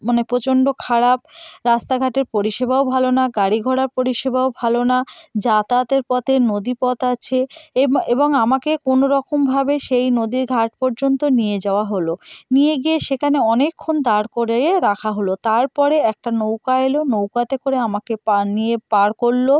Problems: none marked